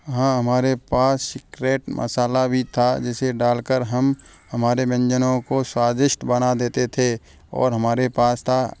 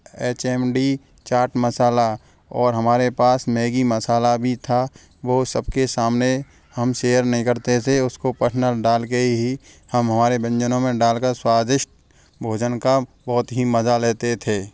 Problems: none marked